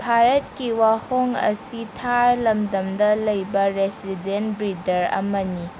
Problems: constant background noise